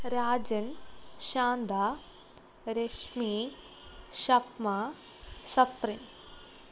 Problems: none marked